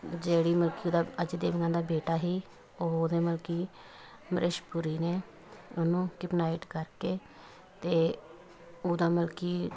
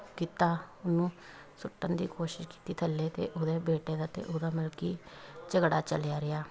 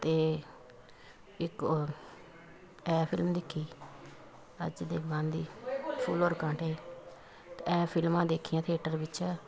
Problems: continuous background conversations